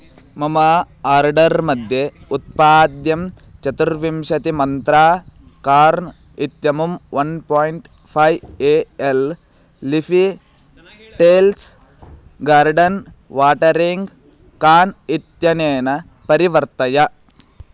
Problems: none marked